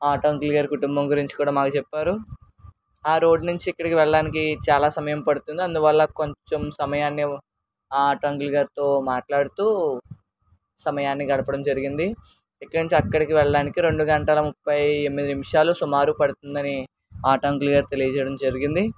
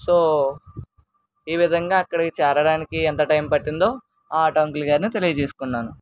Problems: none marked